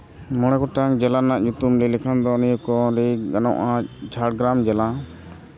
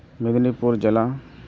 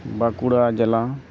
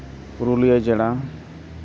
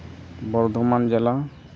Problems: background sounds at intervals